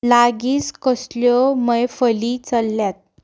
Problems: background sounds at intervals